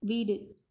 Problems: low volume